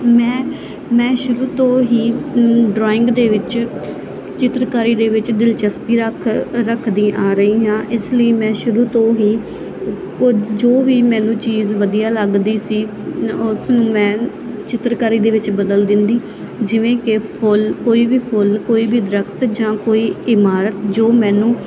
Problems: constant background noise